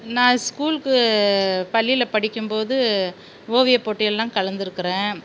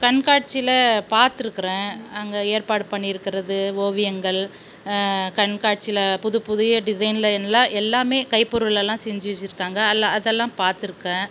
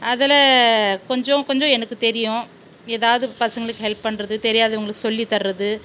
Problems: constant background noise